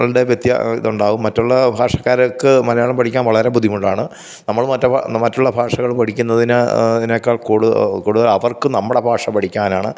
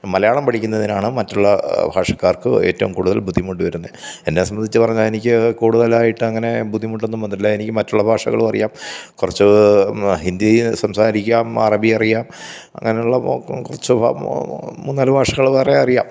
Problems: none marked